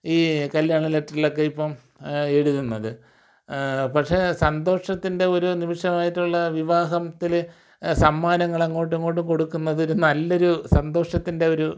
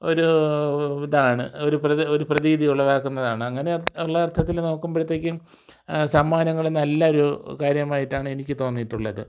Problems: none marked